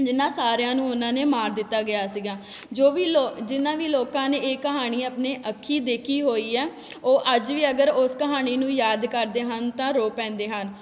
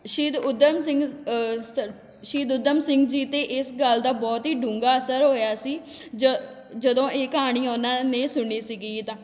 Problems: none marked